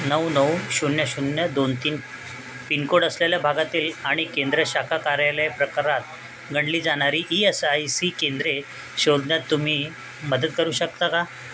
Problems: constant background noise